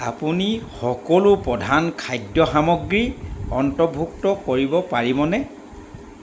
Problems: constant background noise